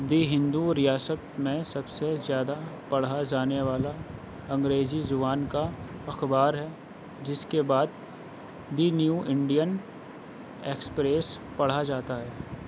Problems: constant background noise